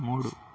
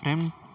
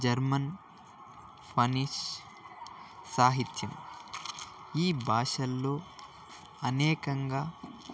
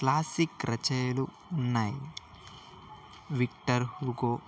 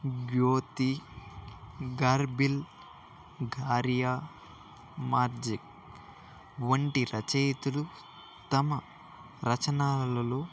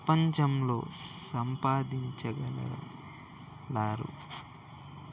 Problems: constant background noise, continuous background conversations